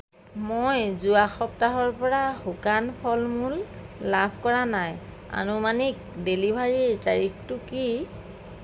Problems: none marked